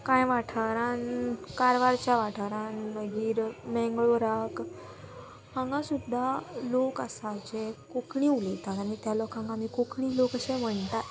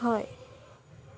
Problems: none marked